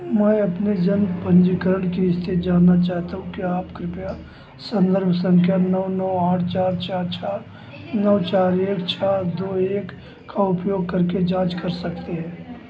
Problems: constant background noise, background conversations at intervals